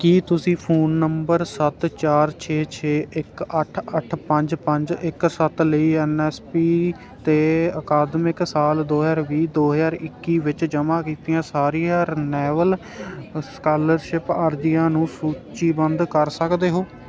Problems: none marked